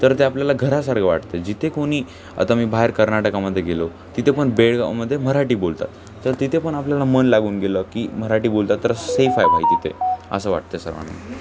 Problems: constant background noise, continuous background conversations